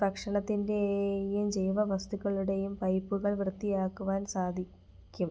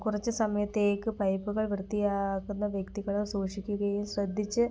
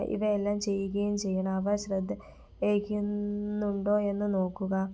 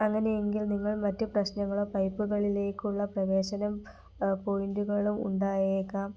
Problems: none marked